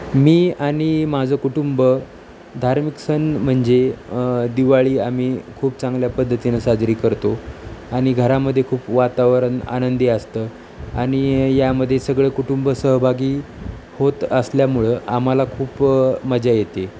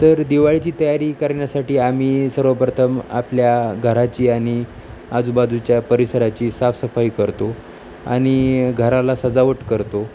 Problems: constant background noise